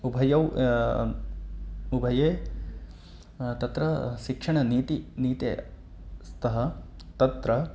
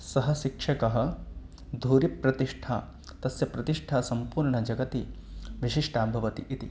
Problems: none marked